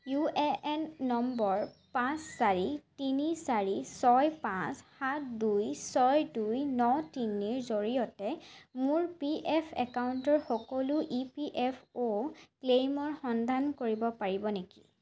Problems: constant background noise